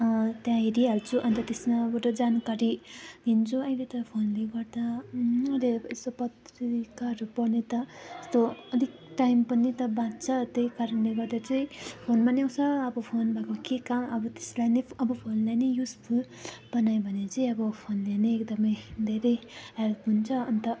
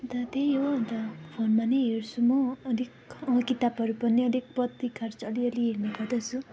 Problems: continuous background conversations